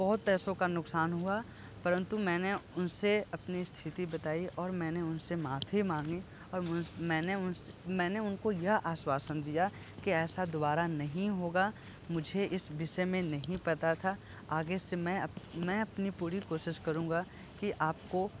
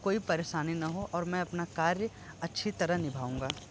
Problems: constant background noise, low volume